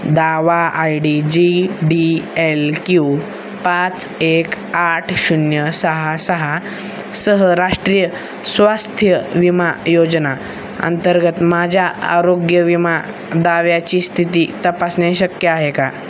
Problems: constant background noise